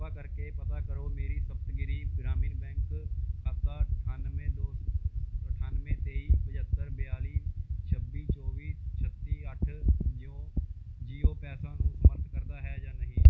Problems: background sounds at intervals